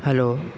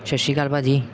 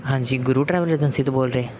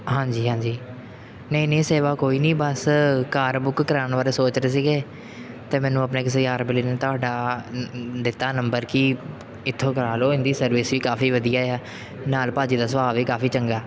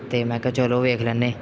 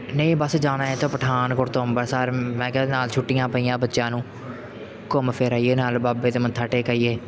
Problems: none marked